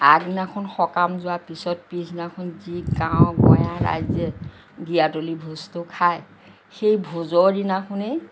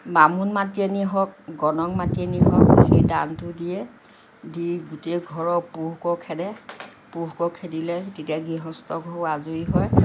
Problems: none marked